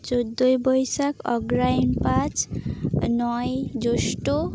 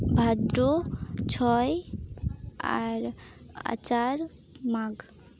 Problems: none marked